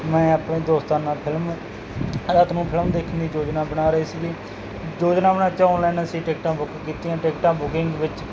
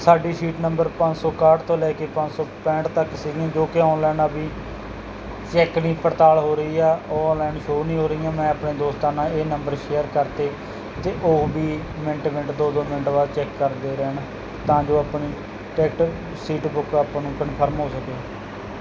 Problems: constant background noise